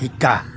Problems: none marked